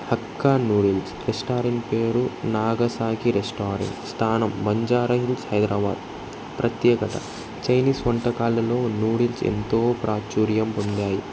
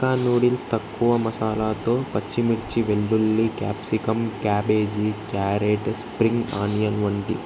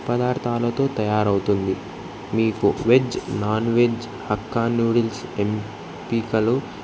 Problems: constant background noise